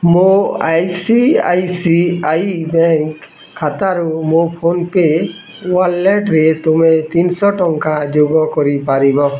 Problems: none marked